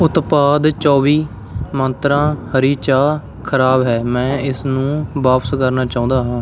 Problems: none marked